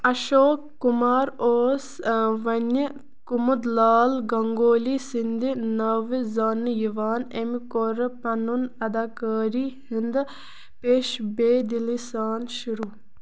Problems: constant background noise